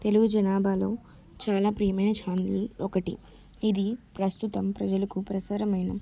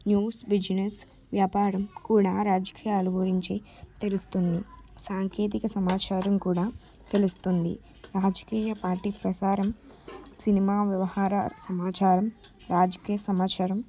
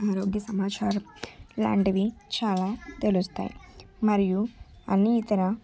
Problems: none marked